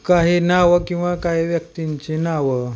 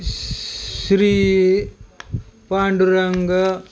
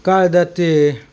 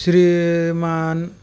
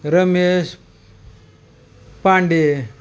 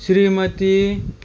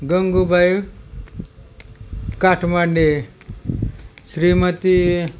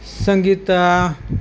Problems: none marked